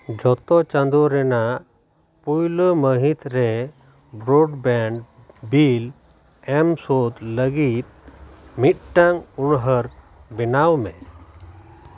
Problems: constant background noise